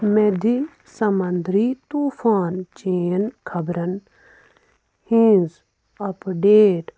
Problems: none marked